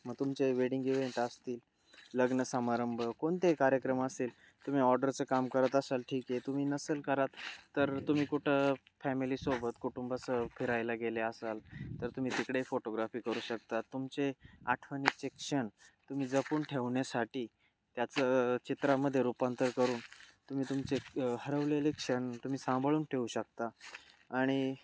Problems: constant background noise, background conversations at intervals